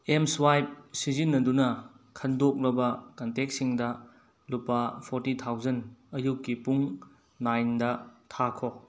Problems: background sounds at intervals